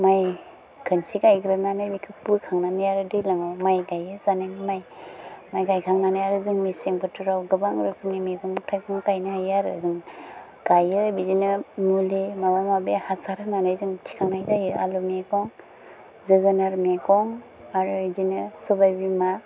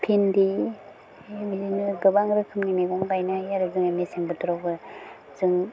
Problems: low volume